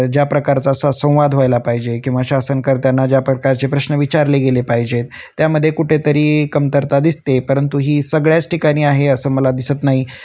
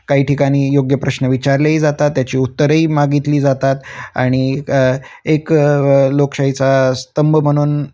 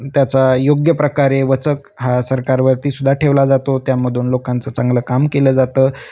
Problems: constant background noise